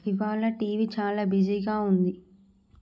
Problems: none marked